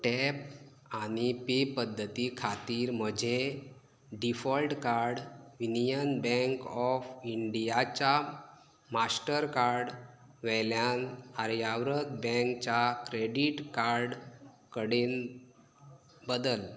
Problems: low volume